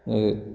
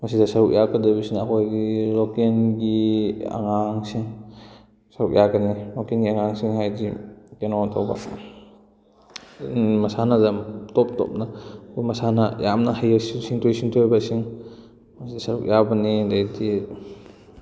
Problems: constant background noise